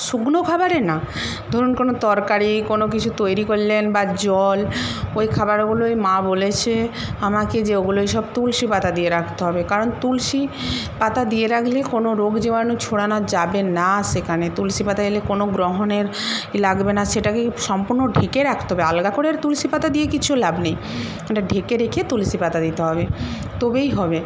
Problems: constant background noise